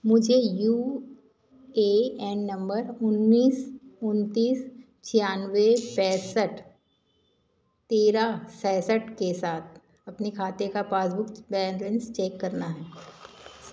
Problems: constant background noise